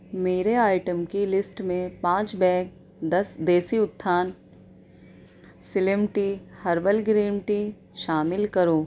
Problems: none marked